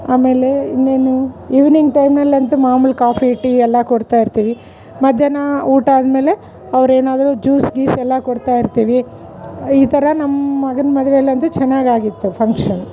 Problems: none marked